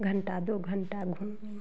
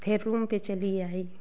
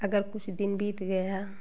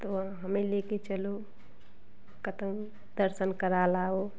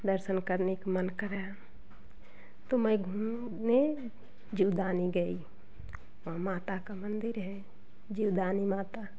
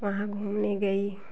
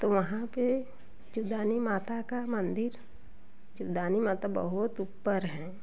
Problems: constant background noise, continuous background conversations